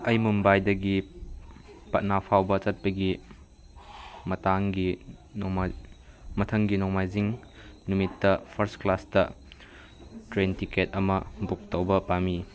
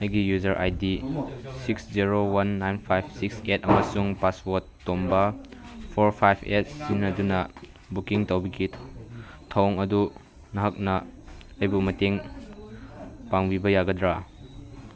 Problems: background conversations at intervals